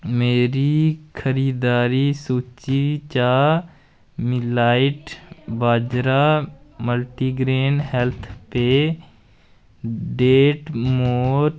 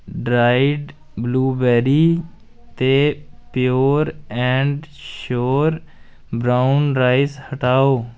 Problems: none marked